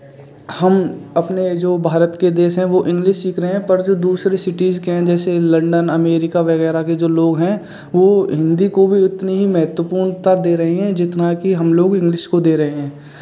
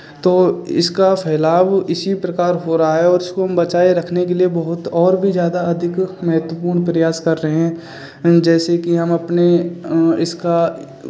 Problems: none marked